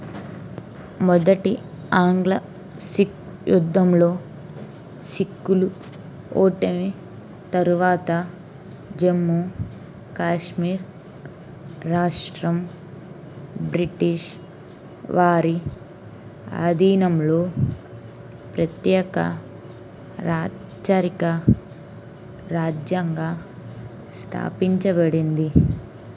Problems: constant background noise